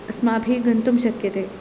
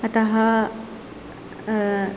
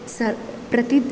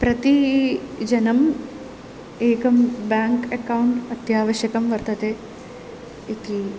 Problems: constant background noise